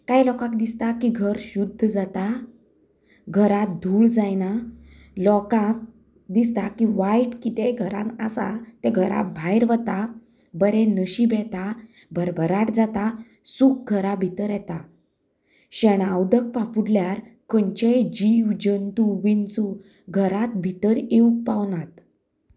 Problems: background sounds at intervals, background conversations at intervals